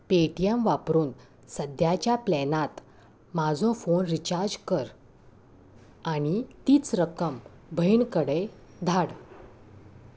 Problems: none marked